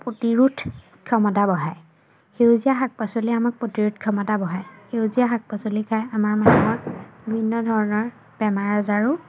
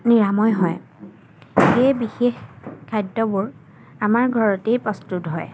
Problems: background sounds at intervals